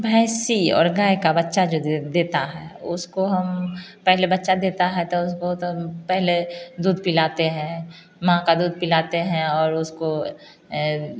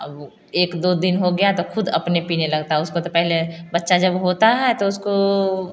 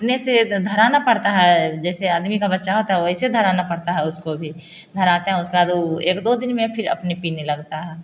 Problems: constant background noise